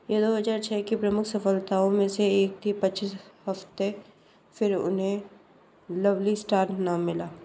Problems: constant background noise